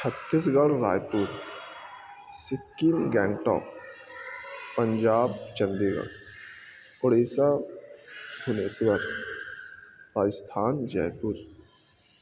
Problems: constant background noise, low volume